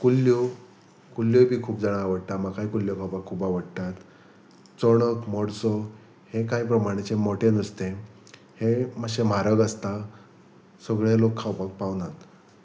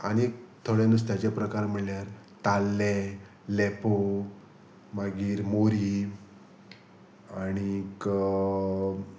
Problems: none marked